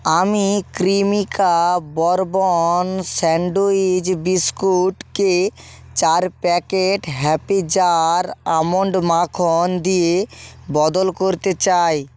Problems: none marked